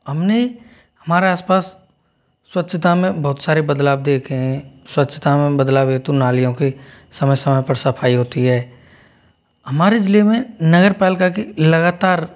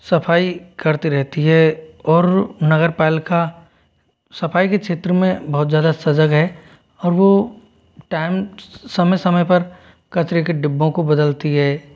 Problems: none marked